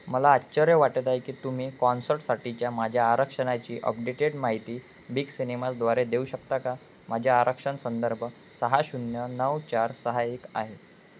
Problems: constant background noise